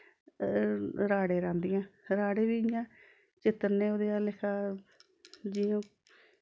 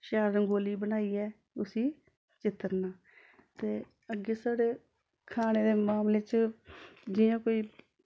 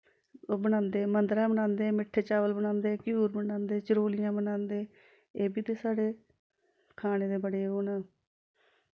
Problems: background sounds at intervals